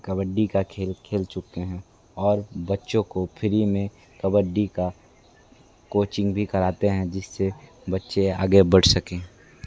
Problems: constant background noise, continuous background conversations